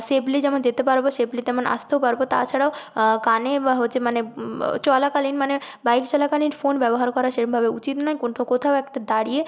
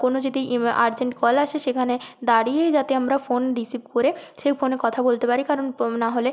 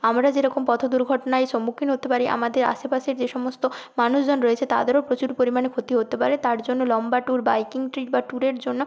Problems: constant background noise